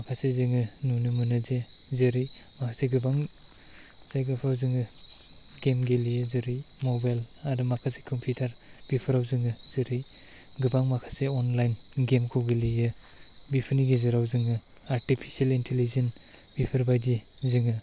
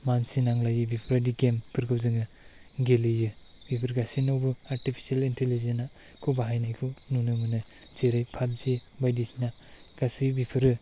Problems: background sounds at intervals